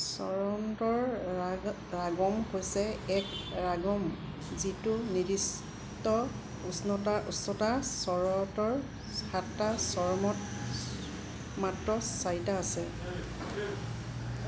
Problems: constant background noise, background conversations at intervals